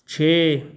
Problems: none marked